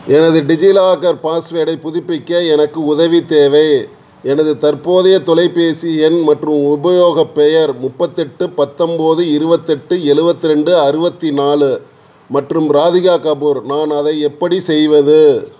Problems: none marked